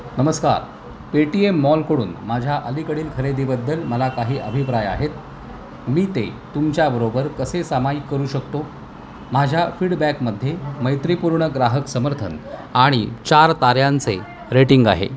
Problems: constant background noise, continuous background conversations